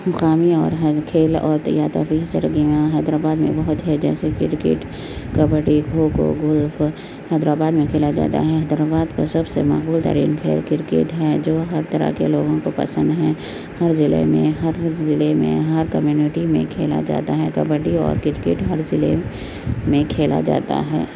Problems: constant background noise